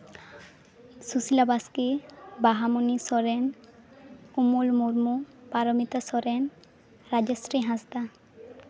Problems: background sounds at intervals, continuous background conversations